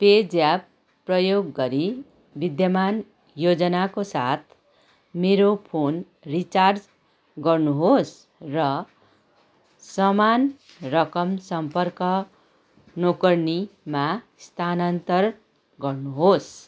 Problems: constant background noise, background conversations at intervals